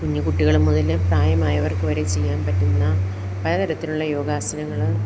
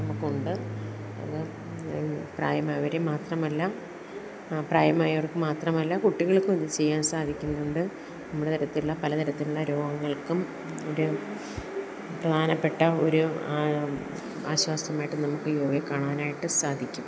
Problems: background sounds at intervals